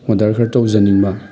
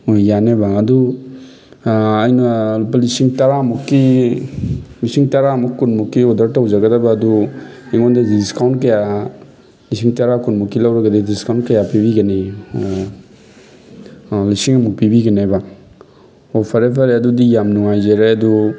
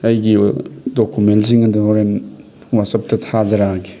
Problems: constant background noise